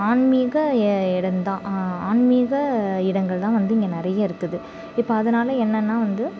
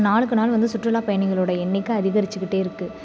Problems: background sounds at intervals